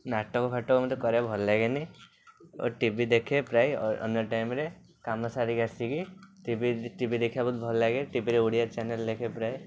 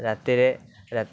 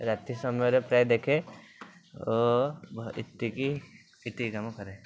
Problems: none marked